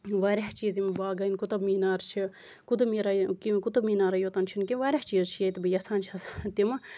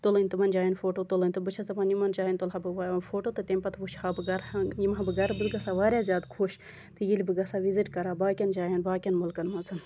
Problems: constant background noise